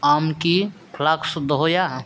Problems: background sounds at intervals